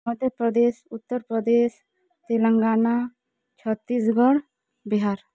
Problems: none marked